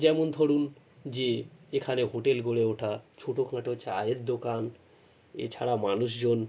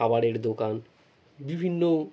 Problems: none marked